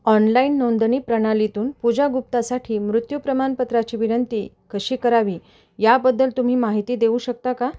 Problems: none marked